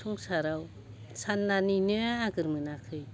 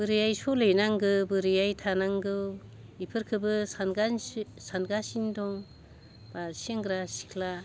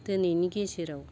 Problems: none marked